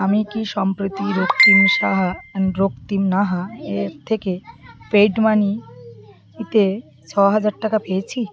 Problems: continuous background conversations